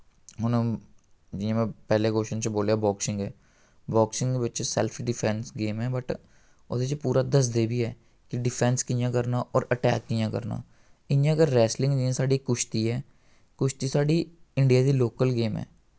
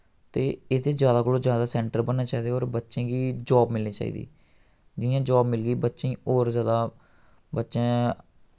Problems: none marked